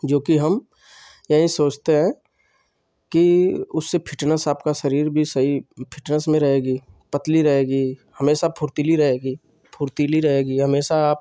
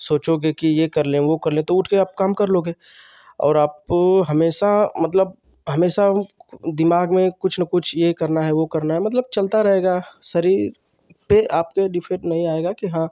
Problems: constant background noise